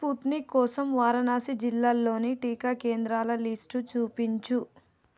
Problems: none marked